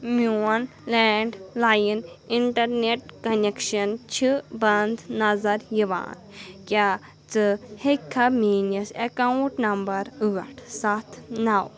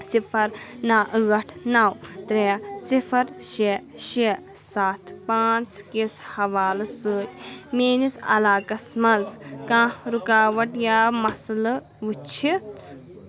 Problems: constant background noise, continuous background conversations